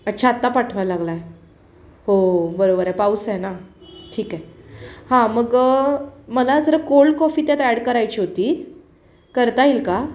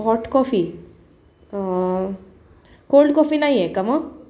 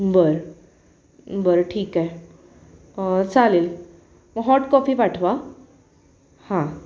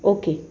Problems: constant background noise